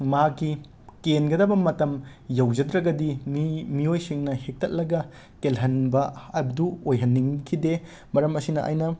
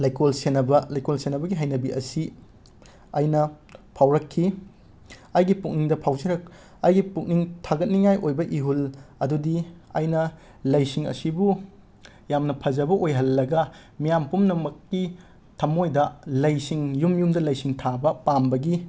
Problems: none marked